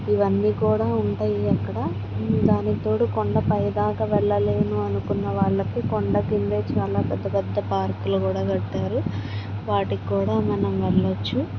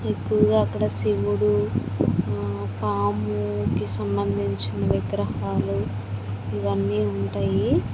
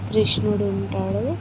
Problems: constant background noise, low volume